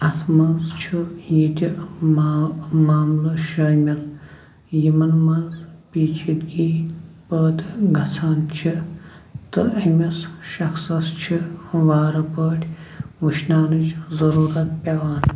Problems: constant background noise